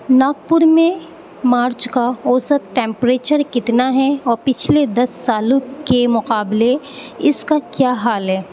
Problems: constant background noise